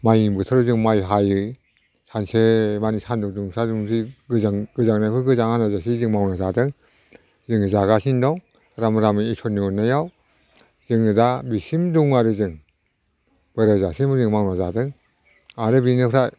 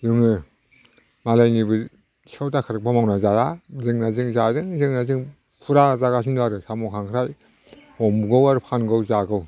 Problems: none marked